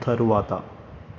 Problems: none marked